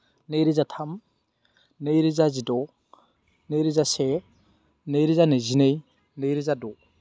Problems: constant background noise